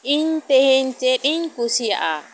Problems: constant background noise